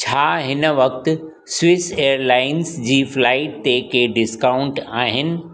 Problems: constant background noise, echo